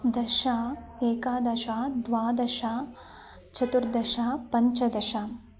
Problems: low volume